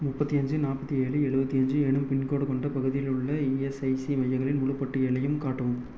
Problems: none marked